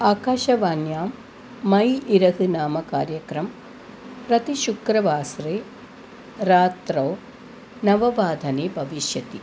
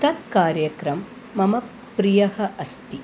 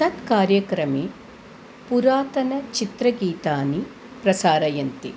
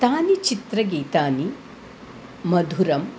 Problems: constant background noise